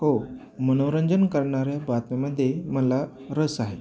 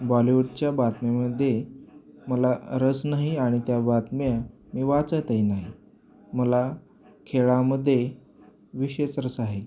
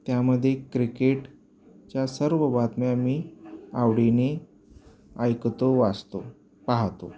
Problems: background sounds at intervals